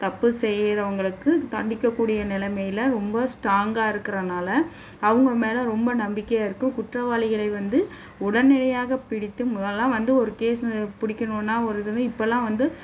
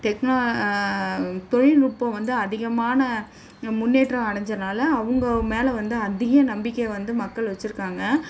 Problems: none marked